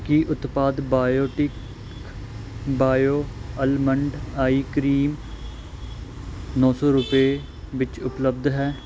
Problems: none marked